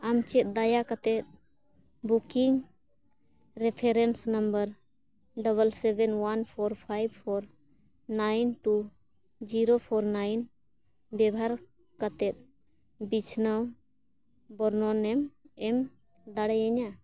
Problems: none marked